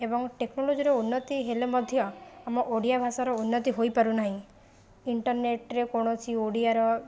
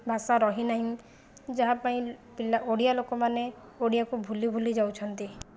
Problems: constant background noise